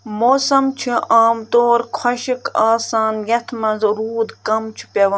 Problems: background sounds at intervals